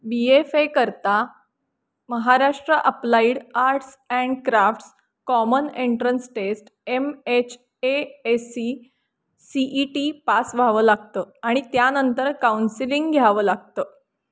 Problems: constant background noise